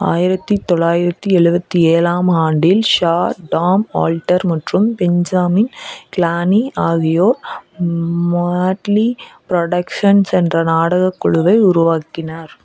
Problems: none marked